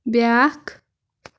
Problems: background sounds at intervals